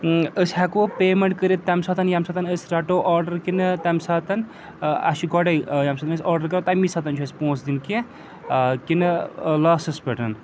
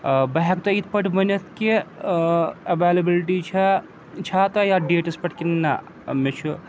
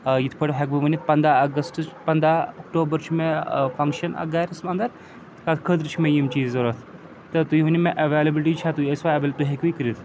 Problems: constant background noise